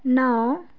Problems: none marked